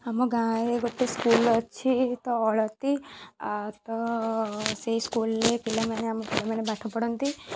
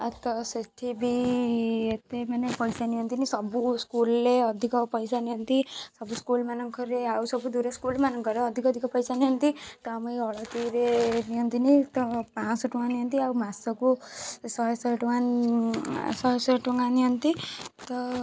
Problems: background sounds at intervals